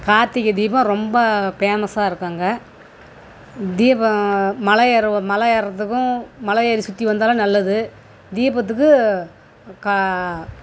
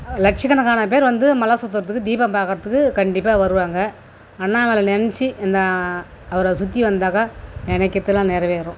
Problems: constant background noise